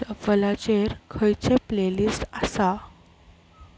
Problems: background sounds at intervals